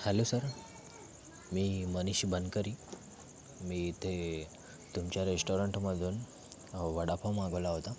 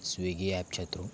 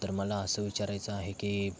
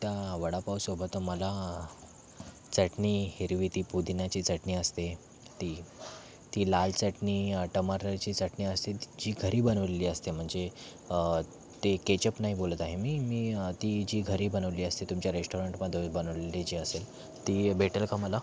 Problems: constant background noise